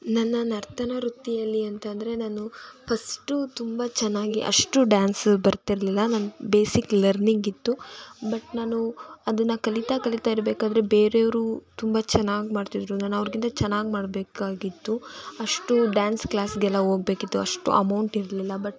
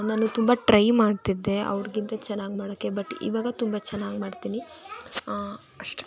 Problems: continuous background conversations